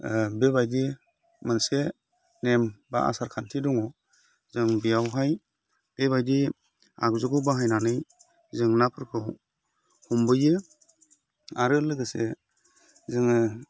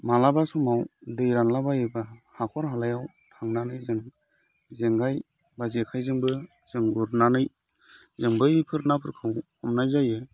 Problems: constant background noise